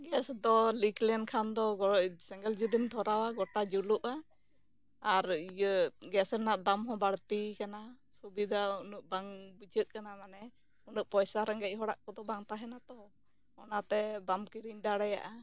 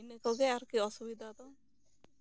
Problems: low volume